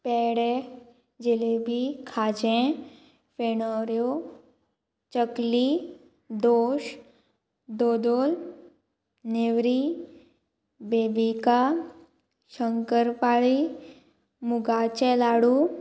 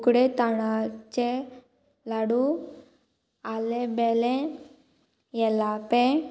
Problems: constant background noise